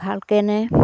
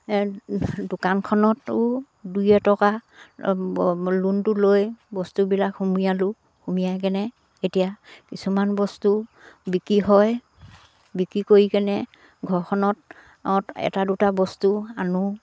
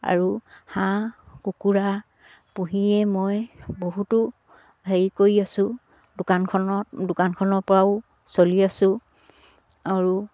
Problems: none marked